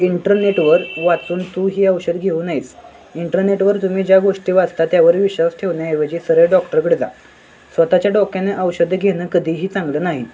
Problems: constant background noise, continuous background conversations